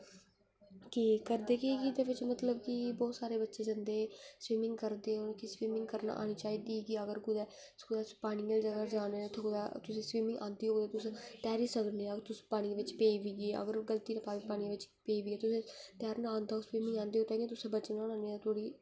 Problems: low volume